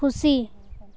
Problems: none marked